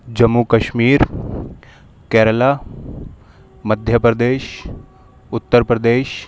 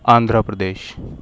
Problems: none marked